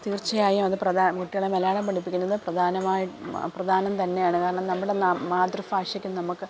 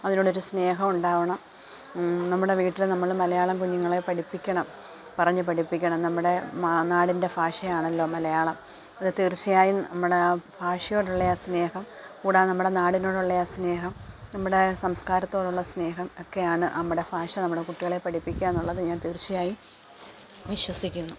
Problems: none marked